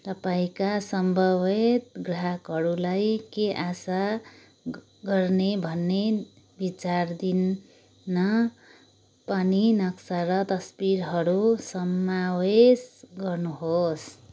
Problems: none marked